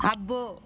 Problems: constant background noise